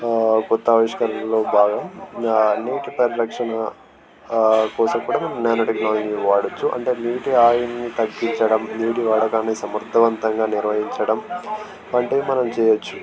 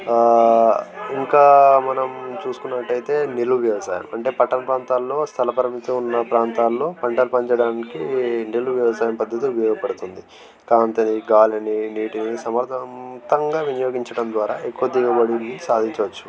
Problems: constant background noise, continuous background conversations